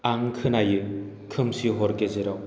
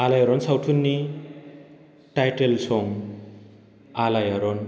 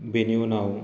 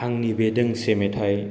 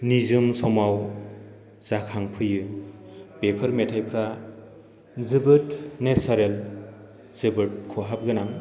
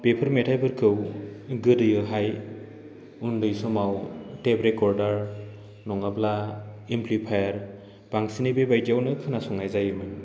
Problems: constant background noise